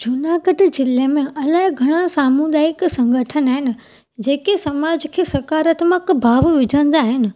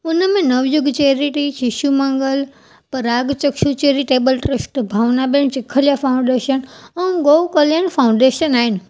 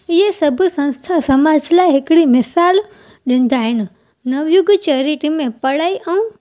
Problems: none marked